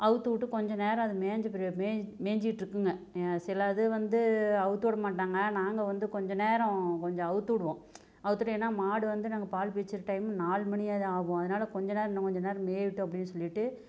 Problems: none marked